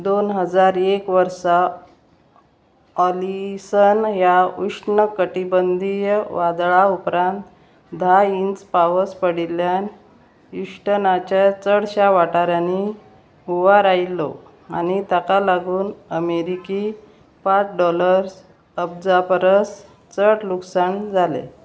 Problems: constant background noise